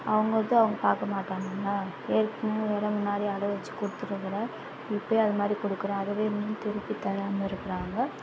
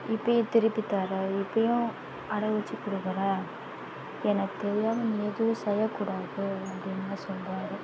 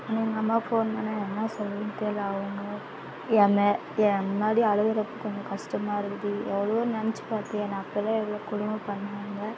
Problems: constant background noise